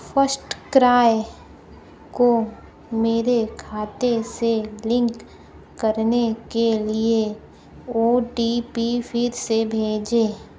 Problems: background sounds at intervals